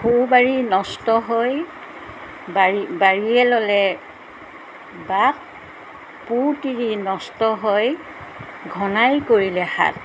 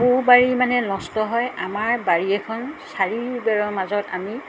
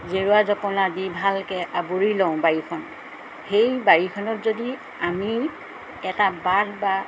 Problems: constant background noise